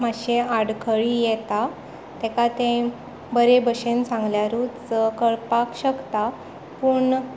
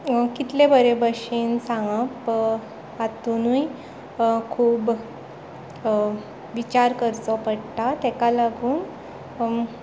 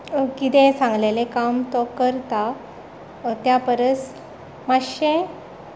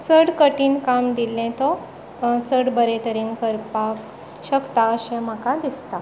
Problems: background sounds at intervals